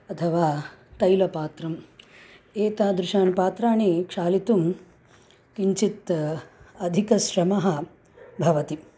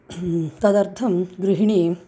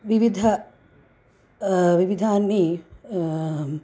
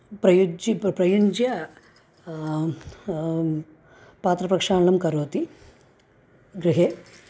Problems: none marked